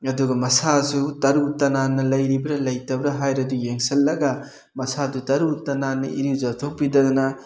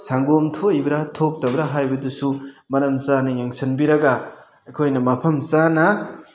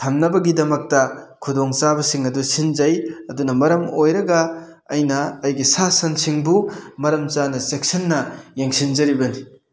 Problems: none marked